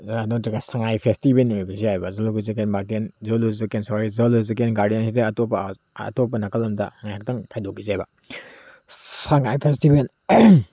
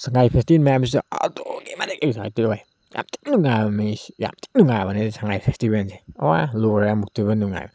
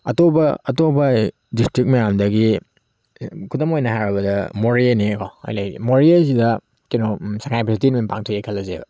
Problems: background sounds at intervals